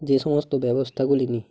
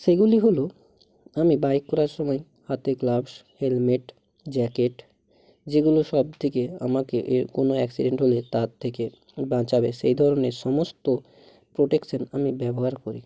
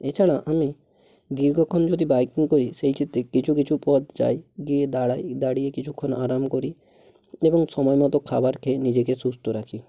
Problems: background sounds at intervals